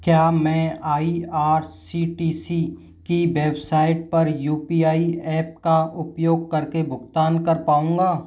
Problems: none marked